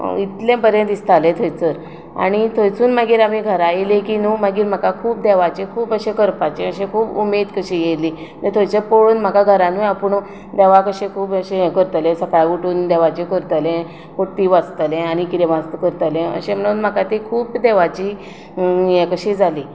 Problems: none marked